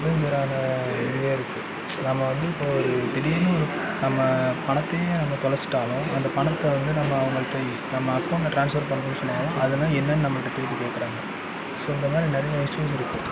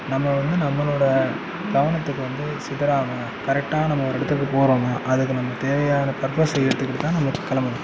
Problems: background conversations at intervals